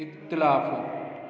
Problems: constant background noise, echo